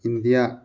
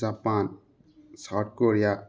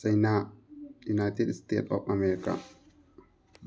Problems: background sounds at intervals, background conversations at intervals